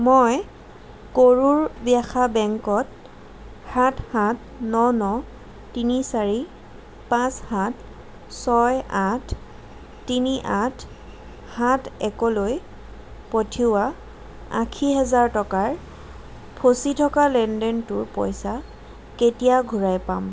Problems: constant background noise